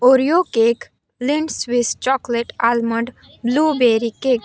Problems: background conversations at intervals